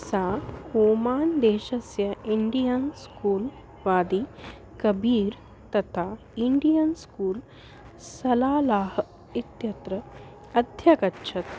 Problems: constant background noise